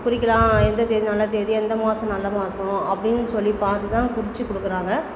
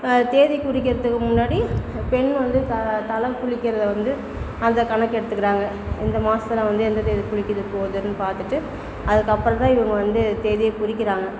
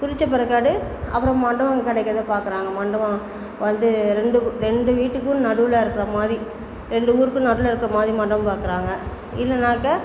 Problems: constant background noise, background conversations at intervals